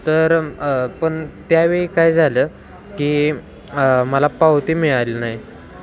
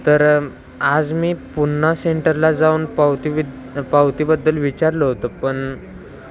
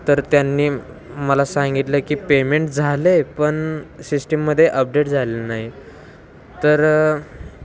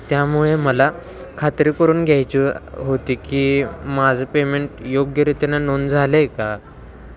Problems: constant background noise